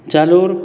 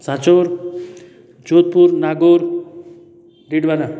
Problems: constant background noise, continuous background conversations